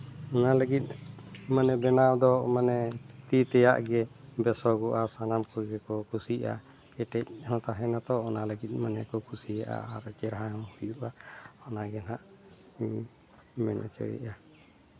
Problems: none marked